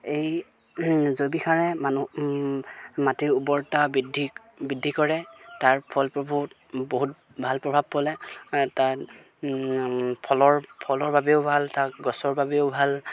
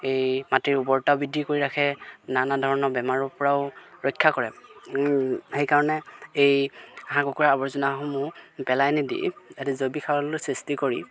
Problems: background sounds at intervals